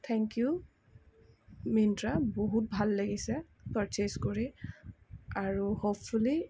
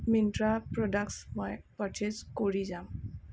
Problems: background sounds at intervals